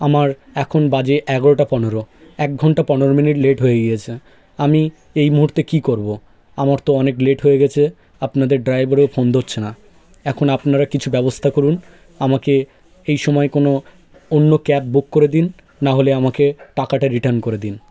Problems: background sounds at intervals, background conversations at intervals